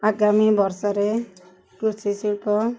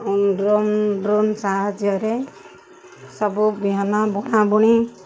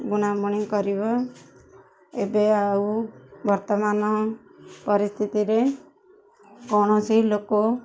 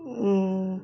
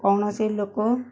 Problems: none marked